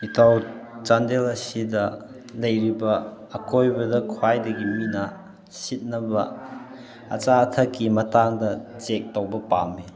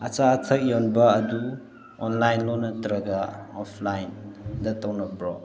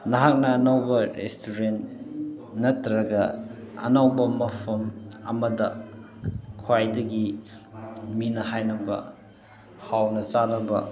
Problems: constant background noise